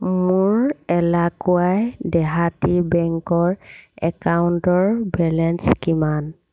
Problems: constant background noise, background conversations at intervals